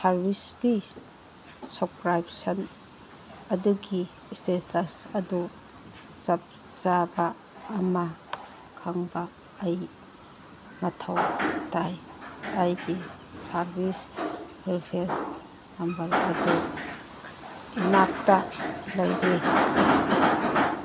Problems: background sounds at intervals, background conversations at intervals